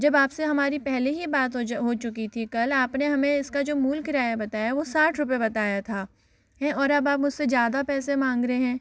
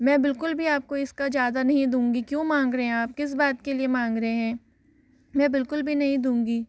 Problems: background sounds at intervals